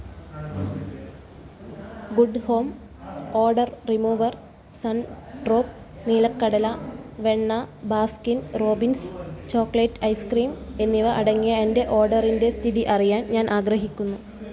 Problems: low volume